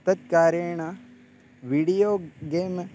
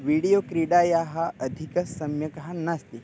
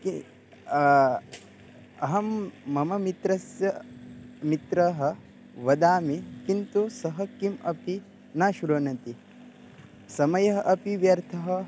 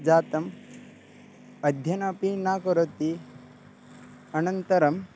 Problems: background sounds at intervals